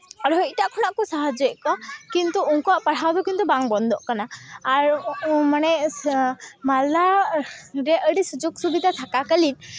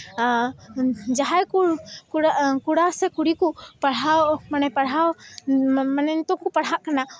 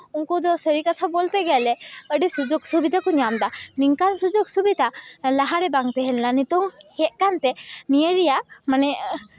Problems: background conversations at intervals